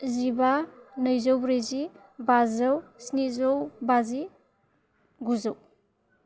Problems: none marked